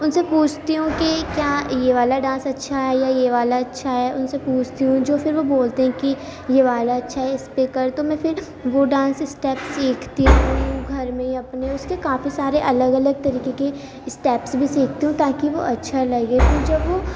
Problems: constant background noise, background conversations at intervals